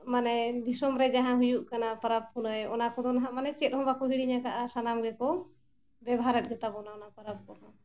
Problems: none marked